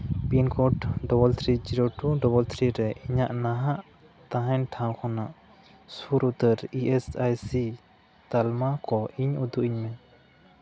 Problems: background conversations at intervals